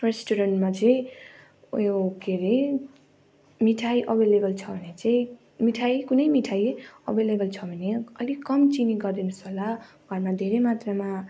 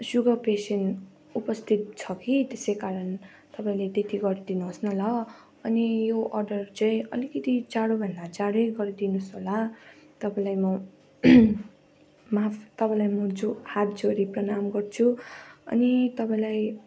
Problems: constant background noise